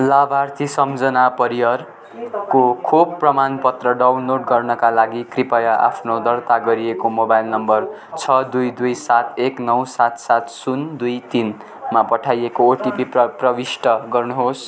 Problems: constant background noise